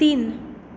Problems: continuous background conversations